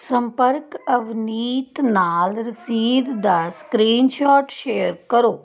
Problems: background conversations at intervals